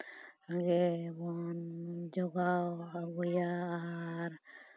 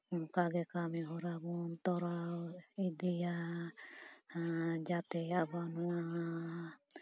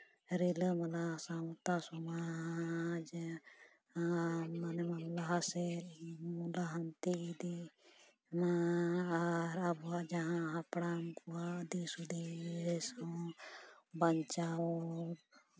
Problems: background sounds at intervals